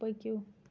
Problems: none marked